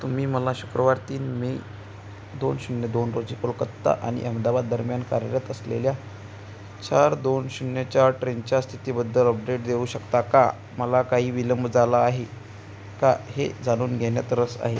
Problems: constant background noise